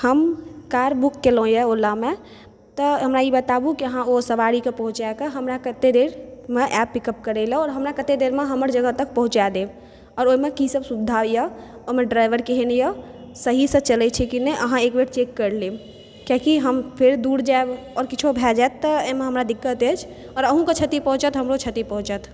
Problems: none marked